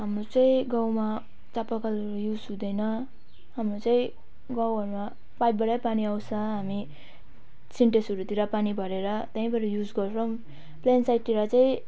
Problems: background sounds at intervals